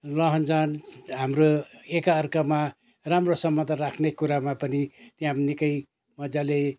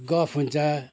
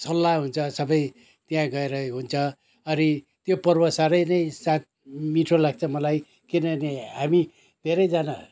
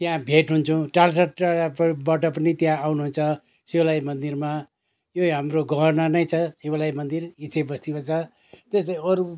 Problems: none marked